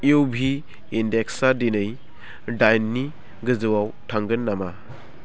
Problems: constant background noise